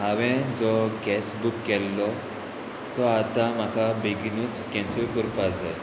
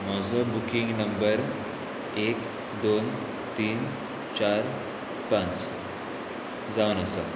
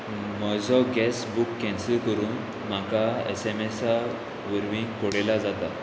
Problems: constant background noise